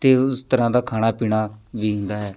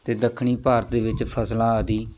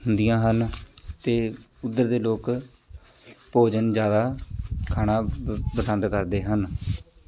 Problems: constant background noise